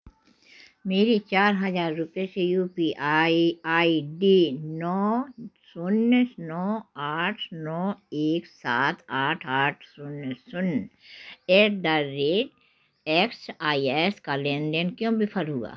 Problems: background sounds at intervals